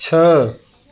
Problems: none marked